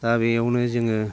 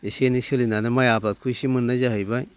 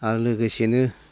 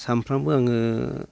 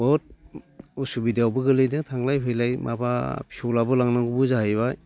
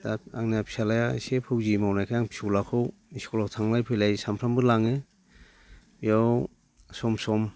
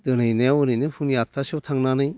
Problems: constant background noise